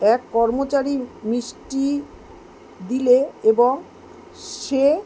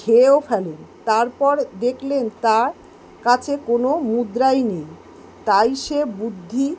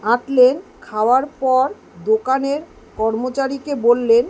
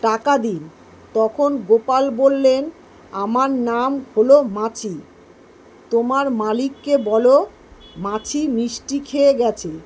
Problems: none marked